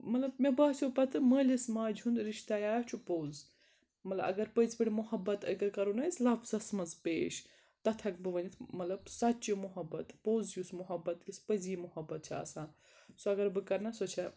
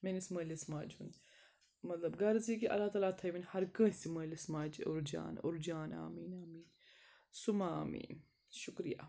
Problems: none marked